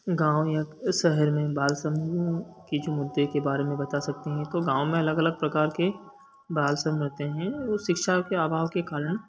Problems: constant background noise